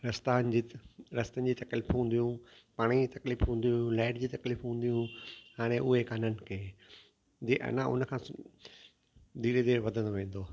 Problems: constant background noise, echo